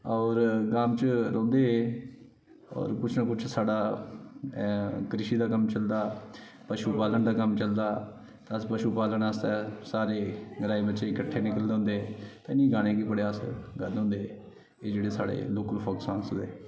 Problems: none marked